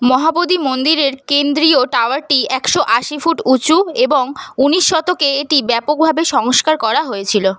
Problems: constant background noise